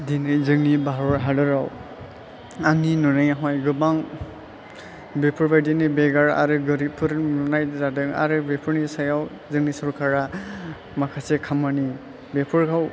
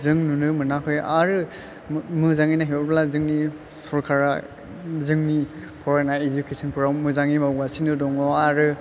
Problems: constant background noise, low volume